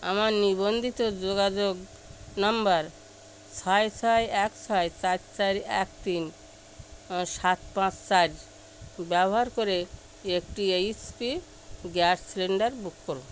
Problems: constant background noise